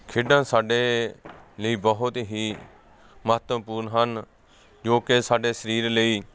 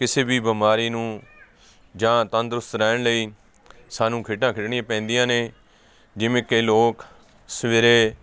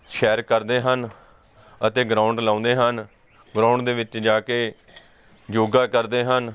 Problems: constant background noise